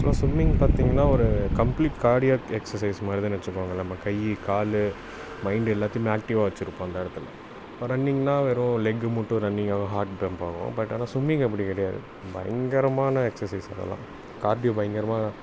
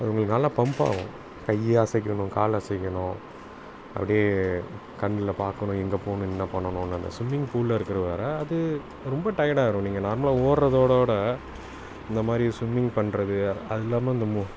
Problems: background sounds at intervals